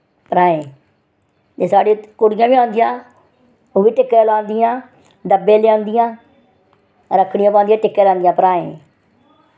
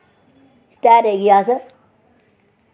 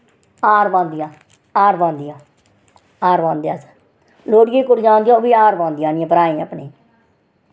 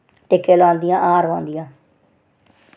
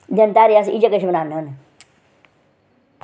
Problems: none marked